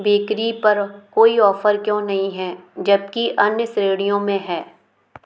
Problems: background sounds at intervals